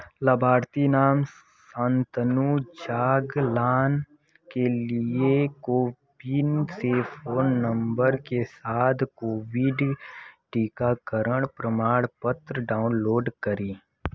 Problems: constant background noise